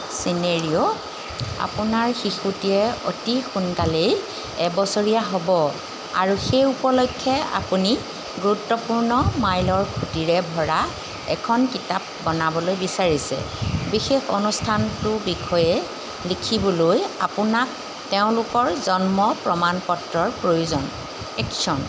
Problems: background sounds at intervals